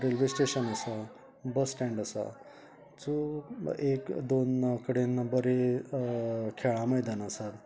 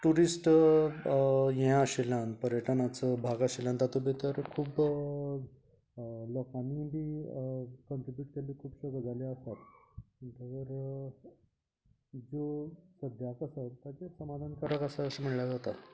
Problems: background conversations at intervals